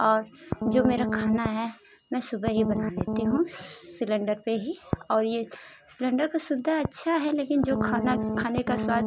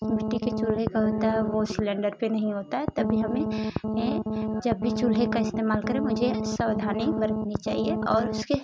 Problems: constant background noise